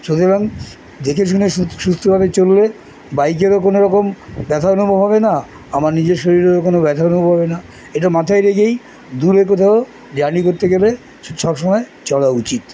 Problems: constant background noise, continuous background conversations